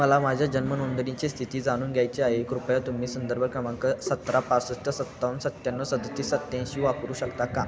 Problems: constant background noise, continuous background conversations